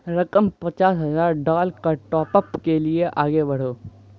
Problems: background sounds at intervals